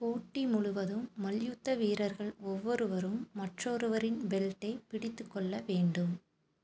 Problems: none marked